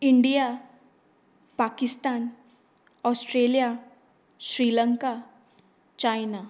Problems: background conversations at intervals